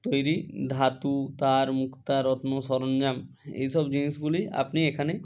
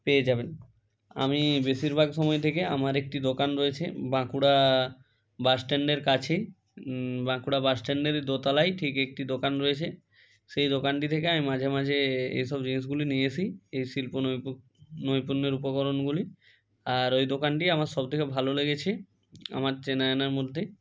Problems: none marked